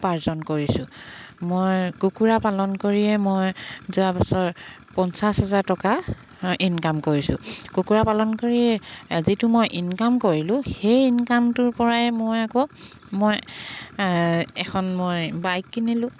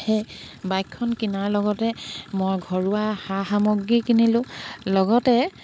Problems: background sounds at intervals